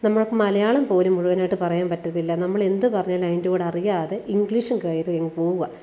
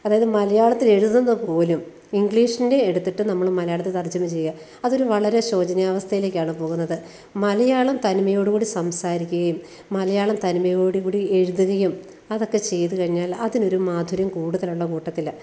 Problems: none marked